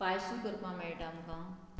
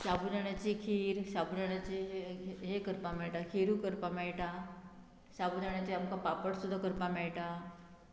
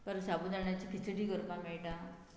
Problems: none marked